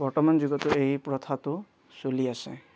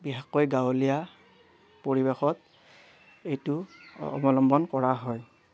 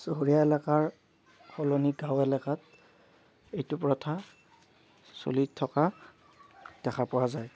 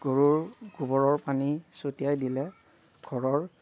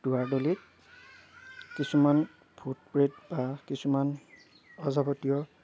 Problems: none marked